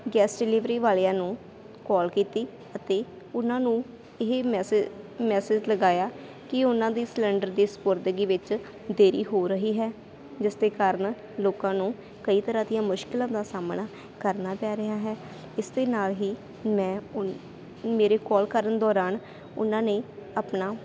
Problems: constant background noise